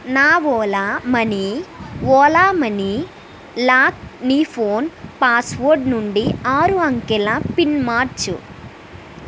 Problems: constant background noise